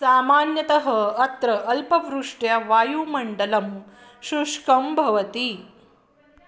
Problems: none marked